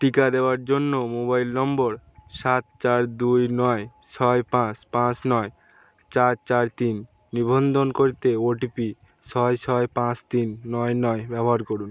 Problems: none marked